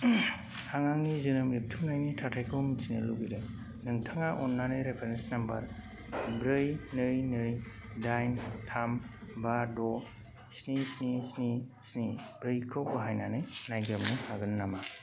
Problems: none marked